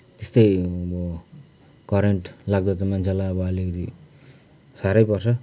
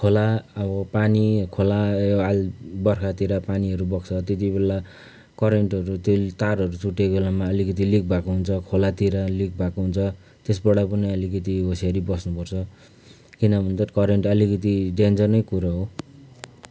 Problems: background conversations at intervals